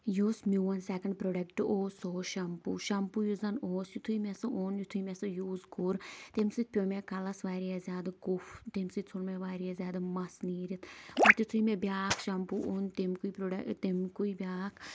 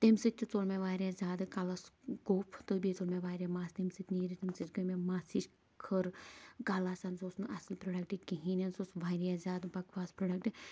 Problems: none marked